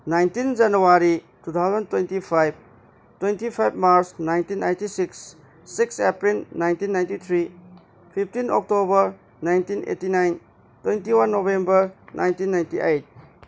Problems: background sounds at intervals